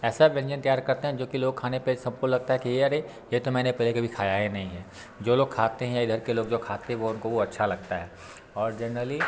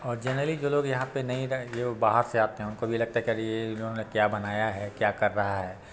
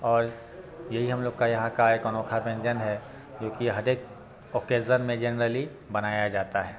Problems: constant background noise, background conversations at intervals